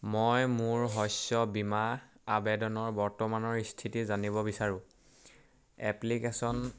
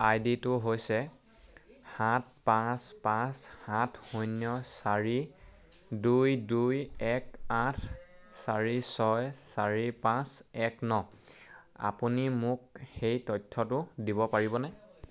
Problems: none marked